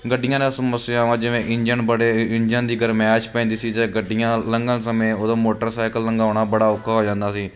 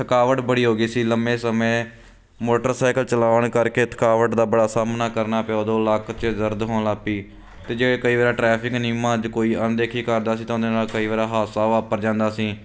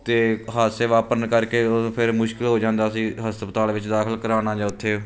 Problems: none marked